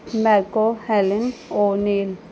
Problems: background sounds at intervals